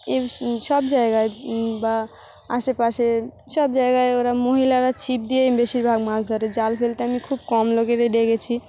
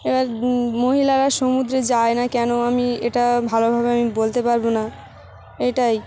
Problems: constant background noise, continuous background conversations